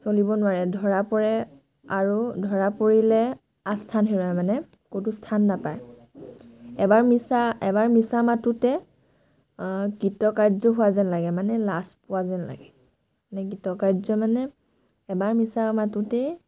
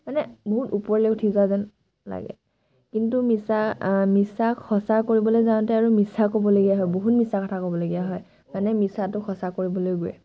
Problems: background sounds at intervals